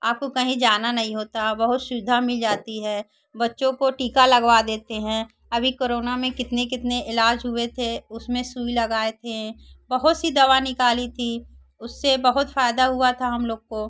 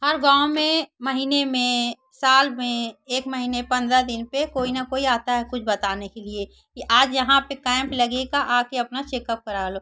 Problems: none marked